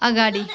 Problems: continuous background conversations